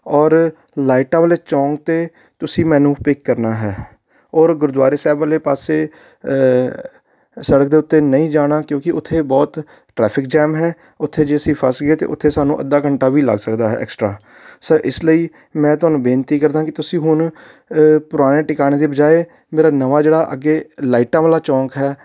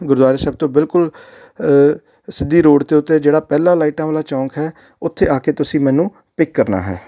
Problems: background sounds at intervals